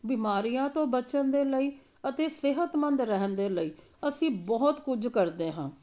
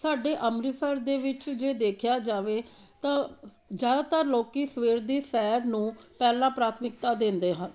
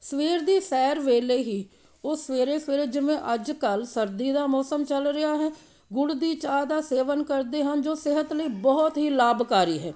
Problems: background sounds at intervals